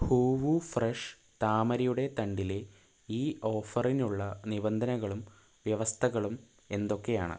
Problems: low volume